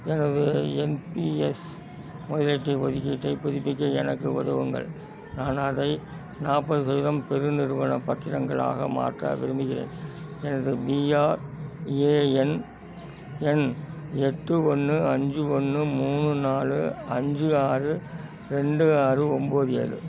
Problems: constant background noise, continuous background conversations